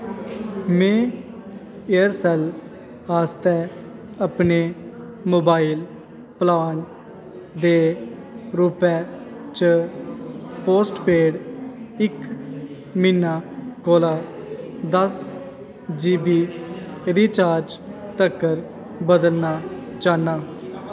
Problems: echo